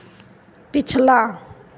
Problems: background sounds at intervals, echo